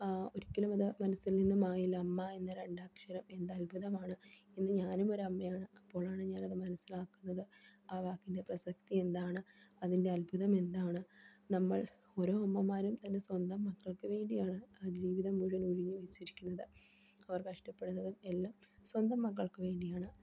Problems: none marked